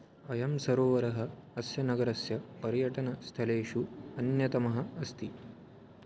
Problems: none marked